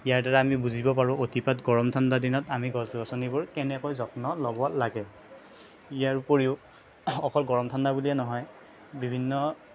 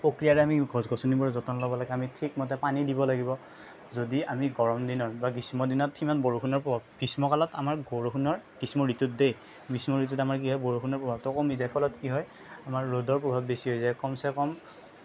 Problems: none marked